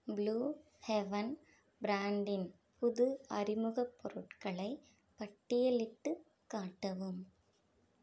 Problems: none marked